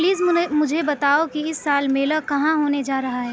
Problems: constant background noise, continuous background conversations